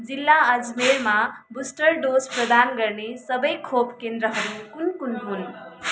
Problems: background conversations at intervals